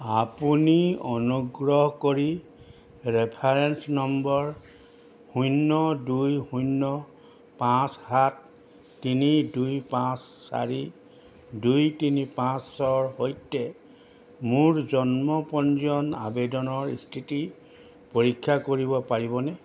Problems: none marked